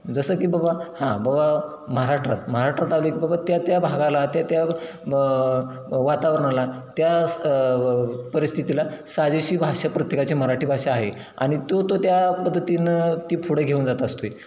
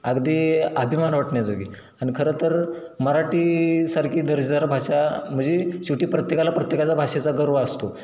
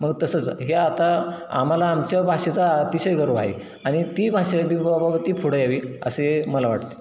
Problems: none marked